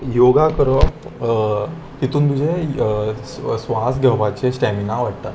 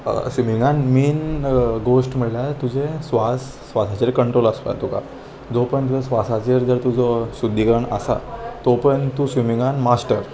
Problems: none marked